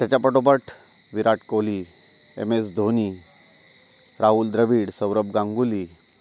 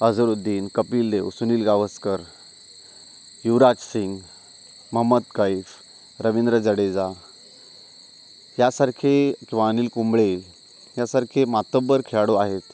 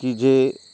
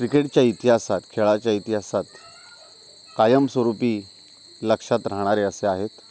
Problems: constant background noise, continuous background conversations